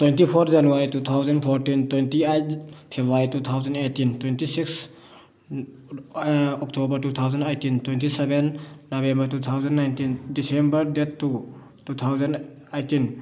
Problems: background conversations at intervals